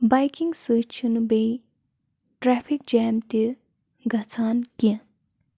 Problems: constant background noise